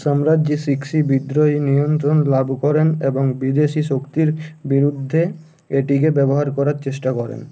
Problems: constant background noise